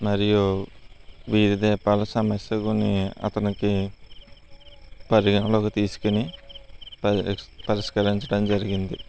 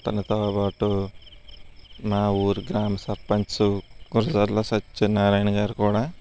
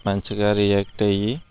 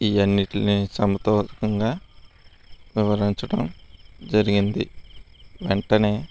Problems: constant background noise